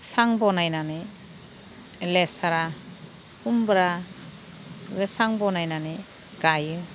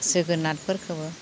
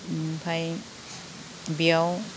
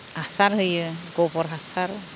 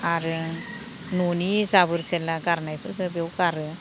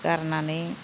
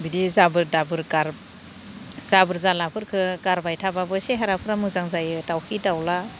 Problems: none marked